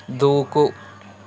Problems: none marked